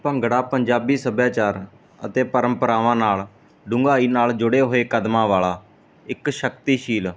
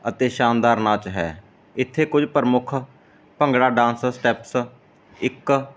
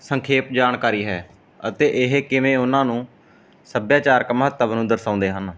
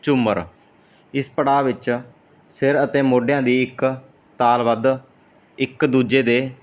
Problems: background sounds at intervals